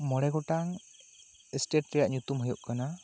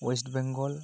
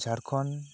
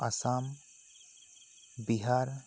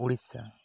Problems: none marked